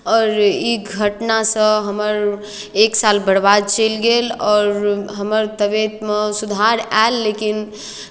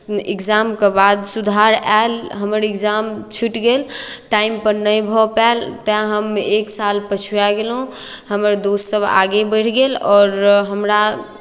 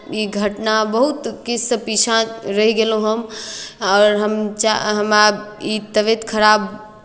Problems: none marked